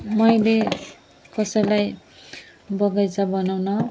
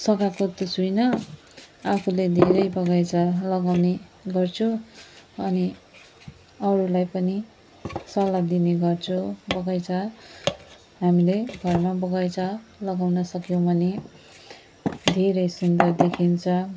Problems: background sounds at intervals